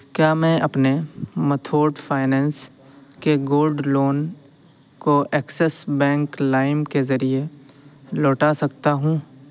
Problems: constant background noise